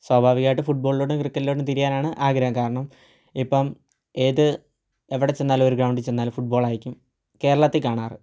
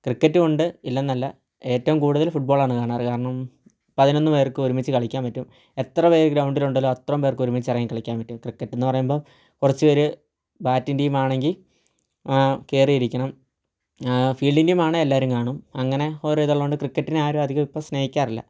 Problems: low volume